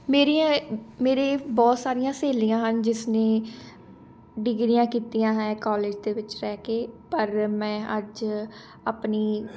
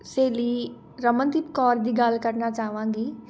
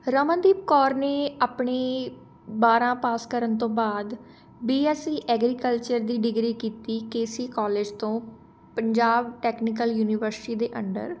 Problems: none marked